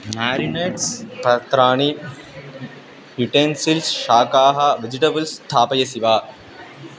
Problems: constant background noise